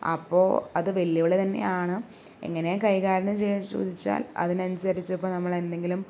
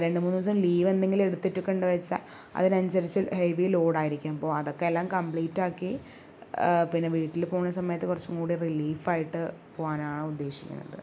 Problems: low volume